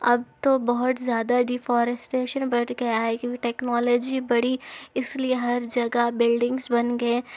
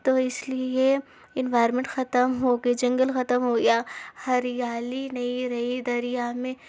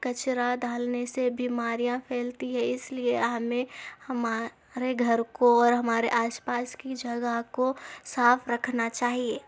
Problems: none marked